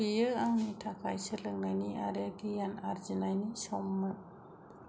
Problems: none marked